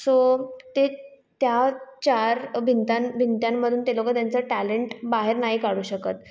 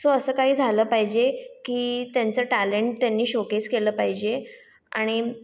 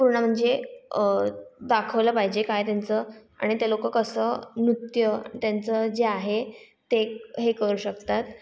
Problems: background sounds at intervals, echo